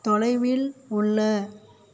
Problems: none marked